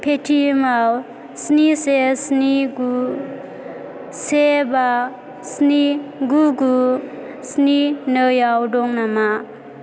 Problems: constant background noise